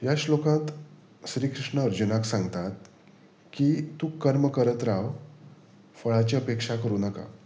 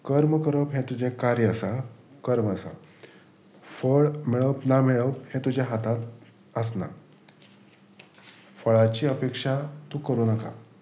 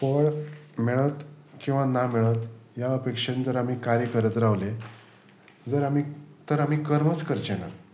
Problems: constant background noise